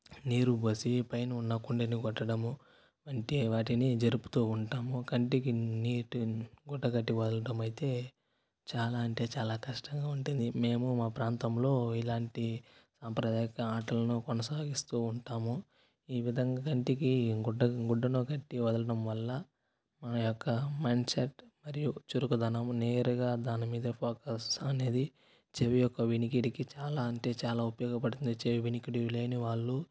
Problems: constant background noise, low volume